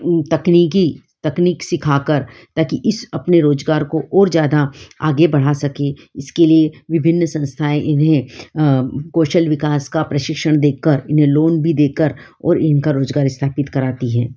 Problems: background sounds at intervals